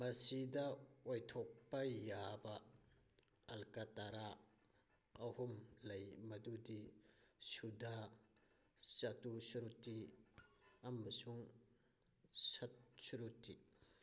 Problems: background sounds at intervals